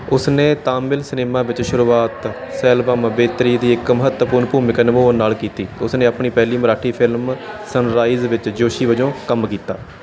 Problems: background sounds at intervals